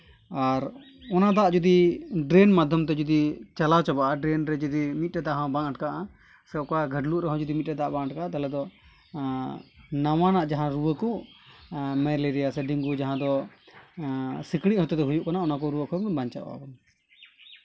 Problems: background sounds at intervals